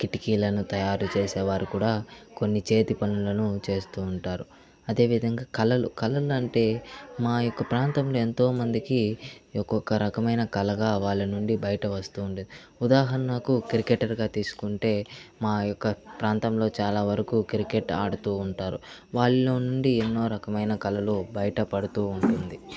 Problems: constant background noise, continuous background conversations